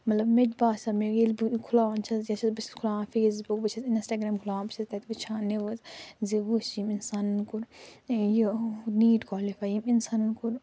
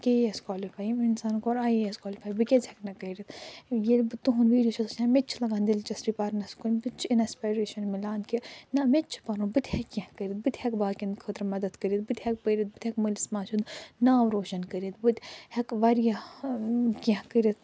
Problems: none marked